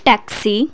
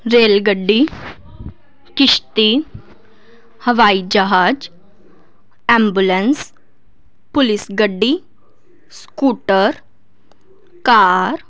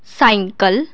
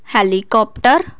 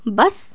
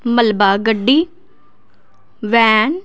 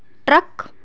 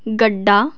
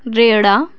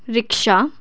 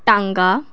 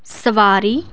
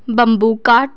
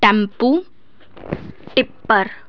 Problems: none marked